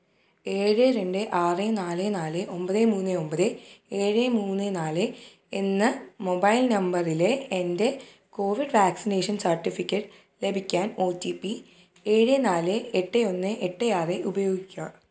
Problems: low volume